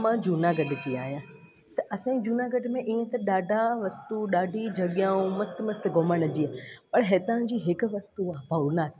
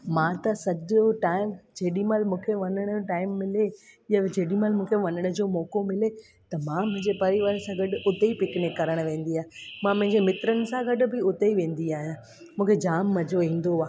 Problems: constant background noise